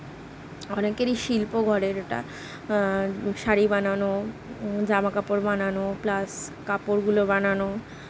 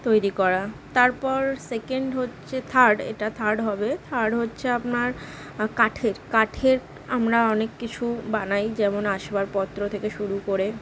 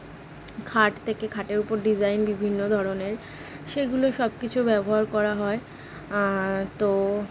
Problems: none marked